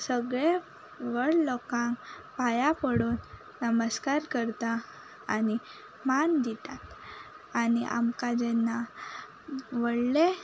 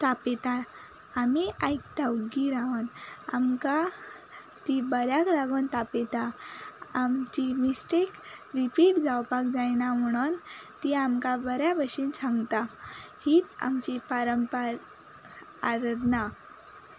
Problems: background sounds at intervals